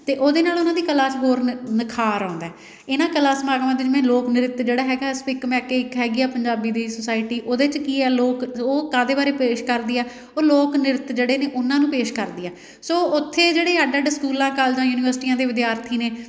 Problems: none marked